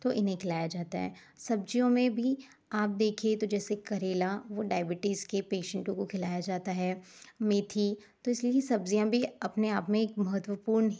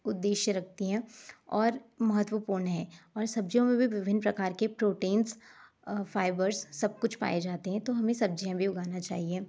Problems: none marked